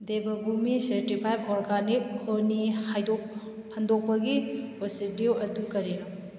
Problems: background sounds at intervals